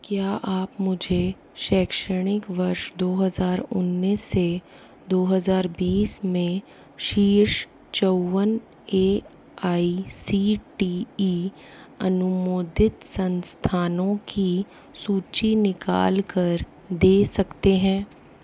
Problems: constant background noise